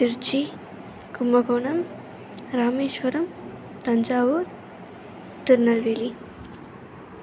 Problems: constant background noise